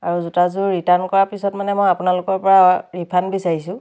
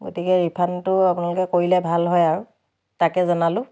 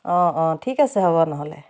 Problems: none marked